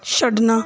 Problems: background sounds at intervals